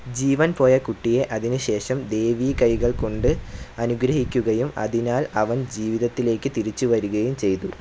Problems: none marked